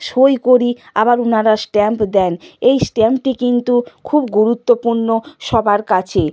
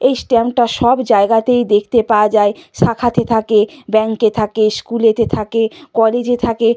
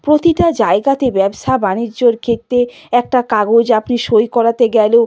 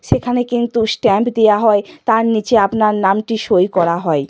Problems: background sounds at intervals